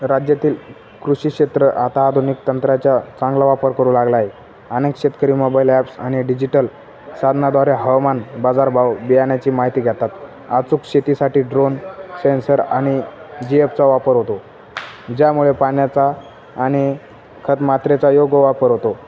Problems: none marked